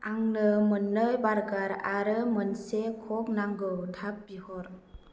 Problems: constant background noise